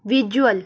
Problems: none marked